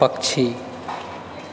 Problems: constant background noise